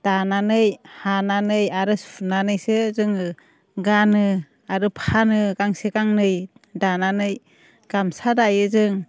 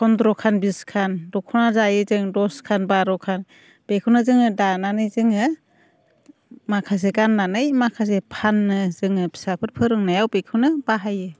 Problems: none marked